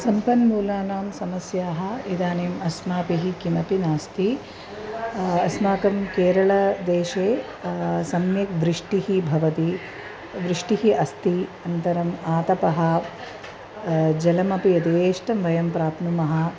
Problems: constant background noise, continuous background conversations